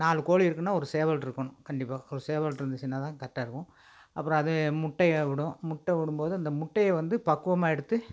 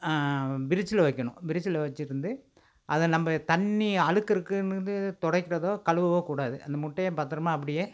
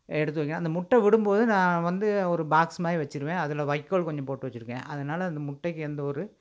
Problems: none marked